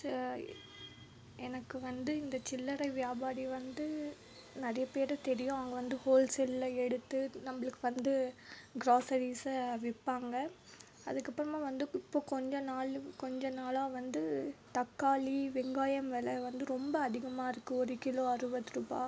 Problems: background sounds at intervals